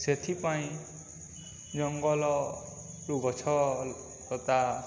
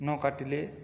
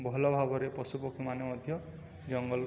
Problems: none marked